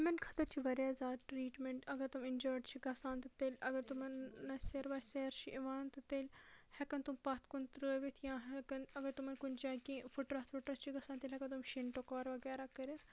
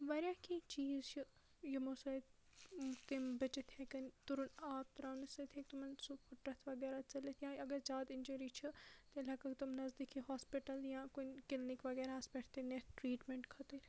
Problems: low volume